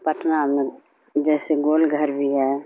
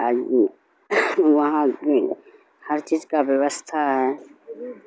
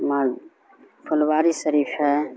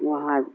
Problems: constant background noise